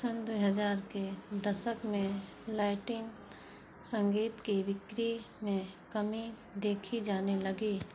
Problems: background sounds at intervals